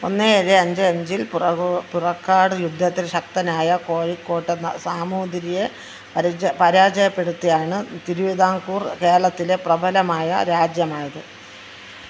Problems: constant background noise